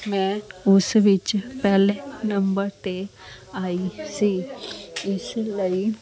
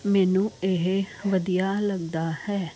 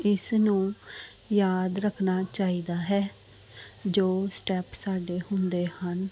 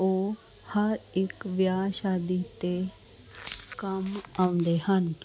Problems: constant background noise, background conversations at intervals